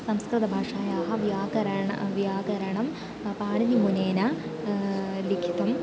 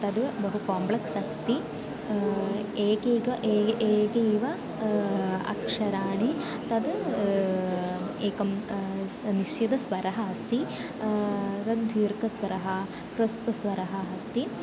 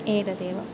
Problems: constant background noise